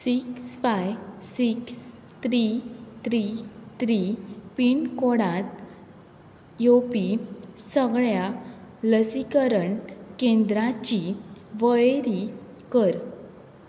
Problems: none marked